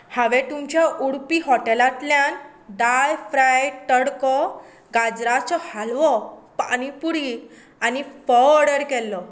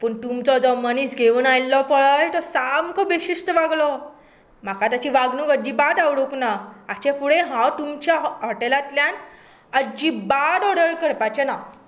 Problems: none marked